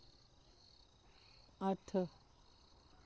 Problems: none marked